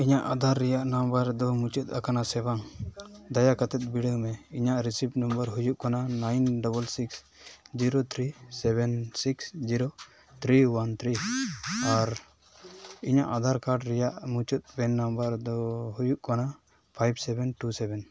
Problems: background sounds at intervals